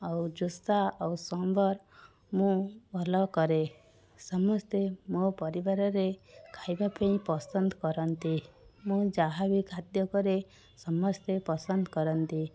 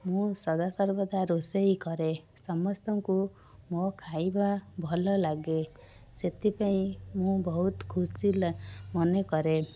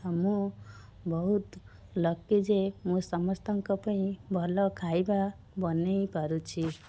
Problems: constant background noise, background conversations at intervals